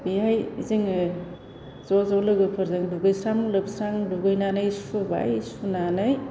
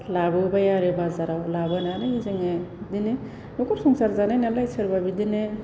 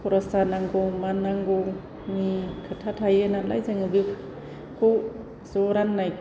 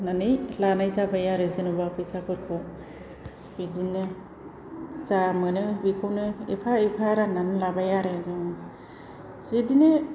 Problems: low volume